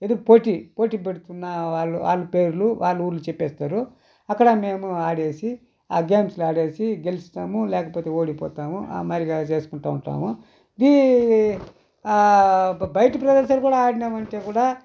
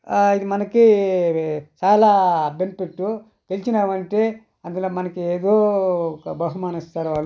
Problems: none marked